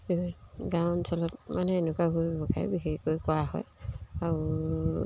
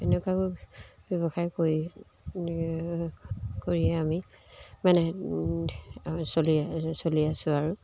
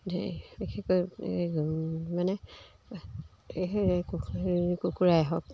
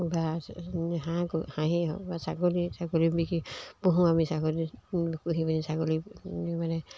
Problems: background sounds at intervals